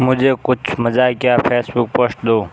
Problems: constant background noise